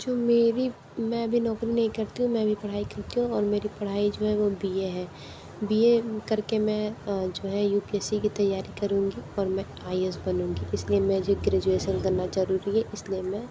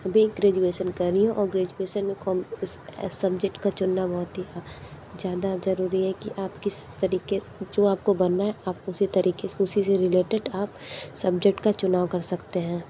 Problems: low volume